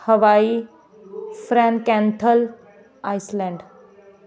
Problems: background sounds at intervals